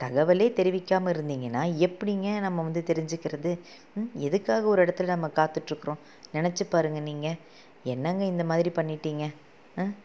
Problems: low volume